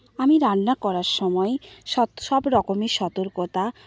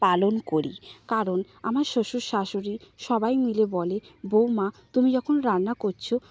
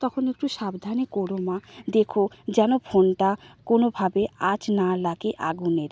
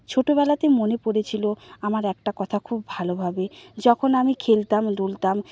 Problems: none marked